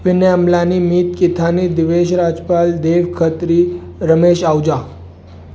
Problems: constant background noise